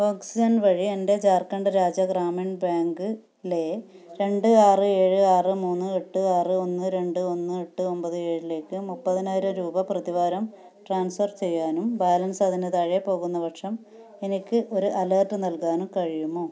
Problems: none marked